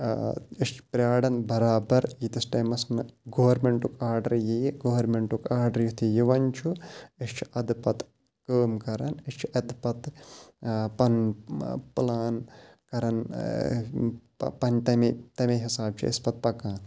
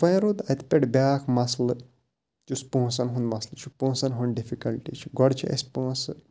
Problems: background sounds at intervals